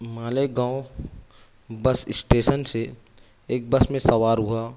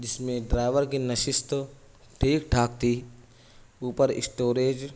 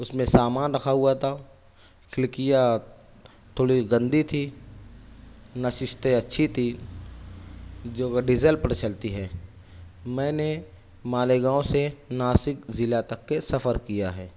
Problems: none marked